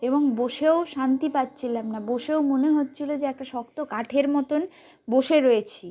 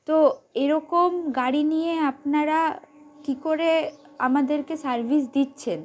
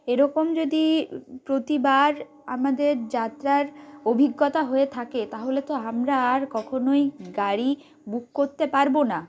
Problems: none marked